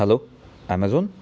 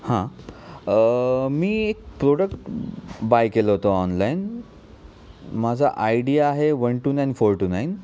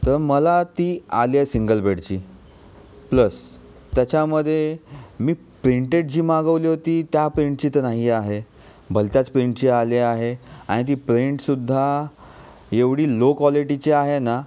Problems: none marked